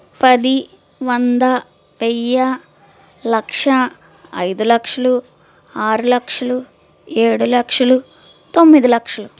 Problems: none marked